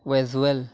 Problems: none marked